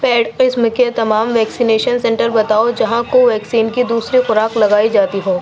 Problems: constant background noise